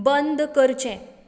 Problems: constant background noise